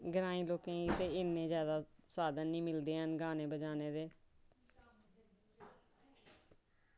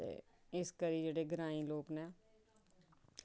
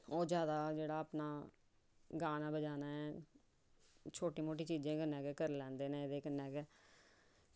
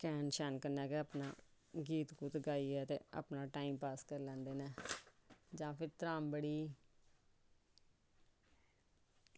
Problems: background sounds at intervals